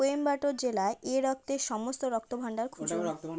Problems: background conversations at intervals